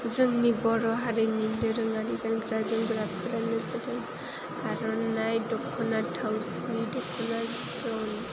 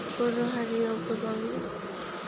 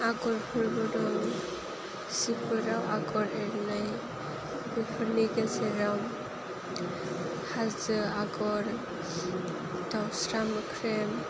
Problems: constant background noise, low volume